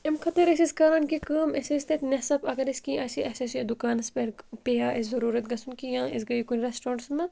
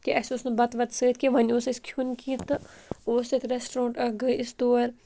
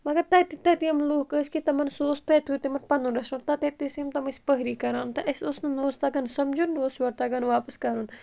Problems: constant background noise